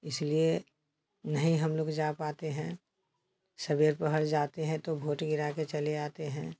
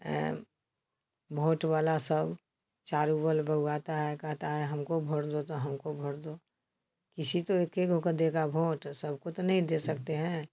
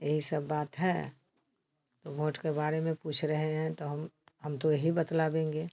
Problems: constant background noise